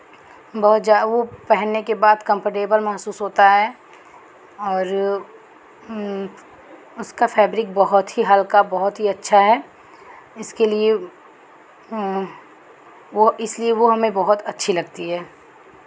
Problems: background sounds at intervals